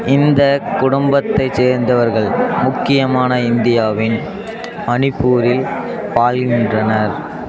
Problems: continuous background conversations